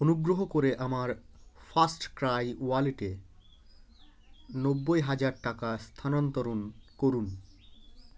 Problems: none marked